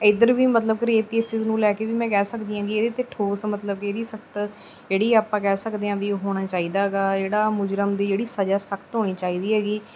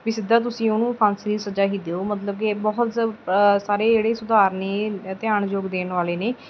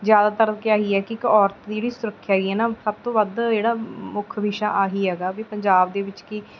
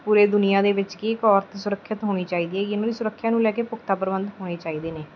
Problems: background sounds at intervals